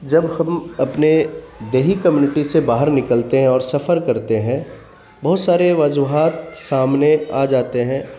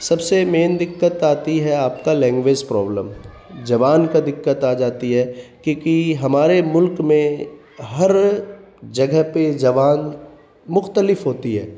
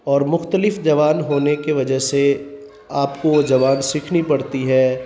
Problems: constant background noise